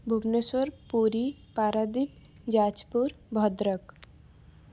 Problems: none marked